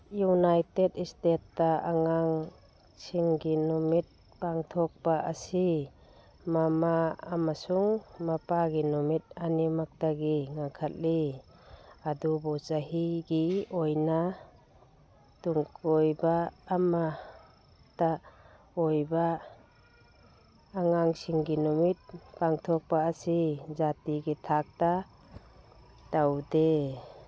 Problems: background sounds at intervals, background conversations at intervals